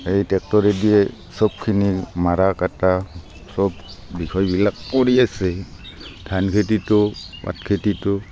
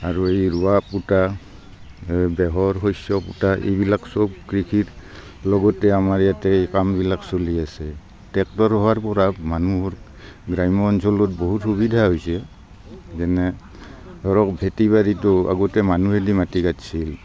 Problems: constant background noise, background conversations at intervals